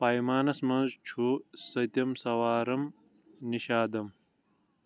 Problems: background sounds at intervals